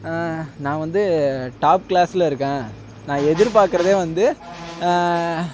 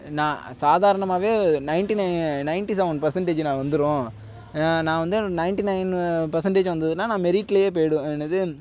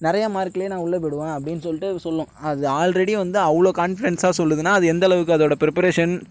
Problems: background sounds at intervals